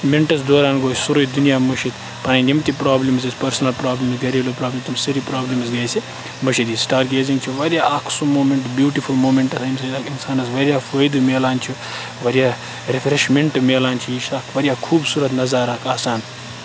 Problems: constant background noise, background conversations at intervals